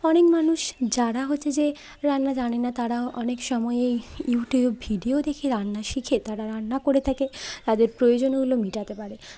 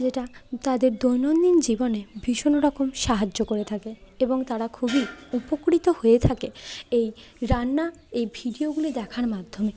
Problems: constant background noise, continuous background conversations